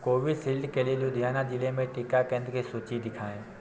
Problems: constant background noise, low volume